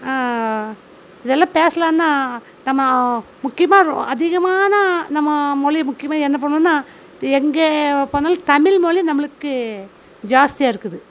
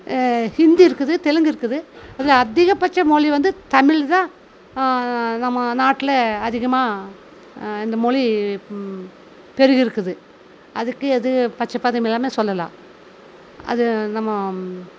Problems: constant background noise